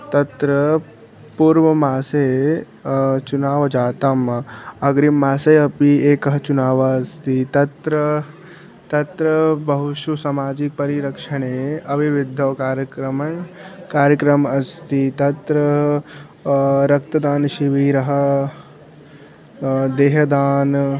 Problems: background sounds at intervals